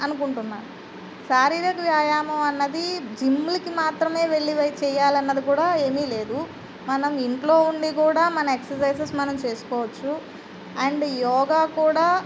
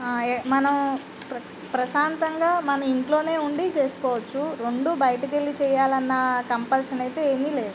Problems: constant background noise